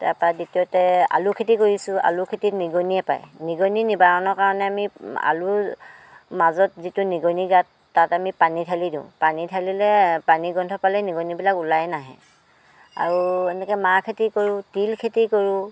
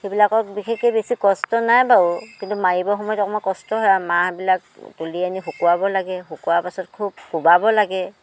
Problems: constant background noise